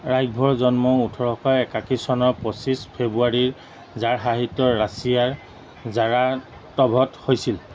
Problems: none marked